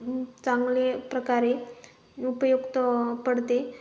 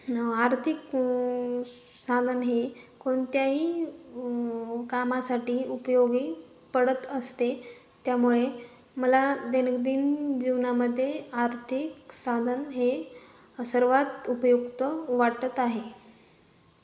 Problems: none marked